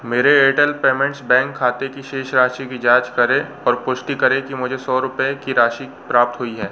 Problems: constant background noise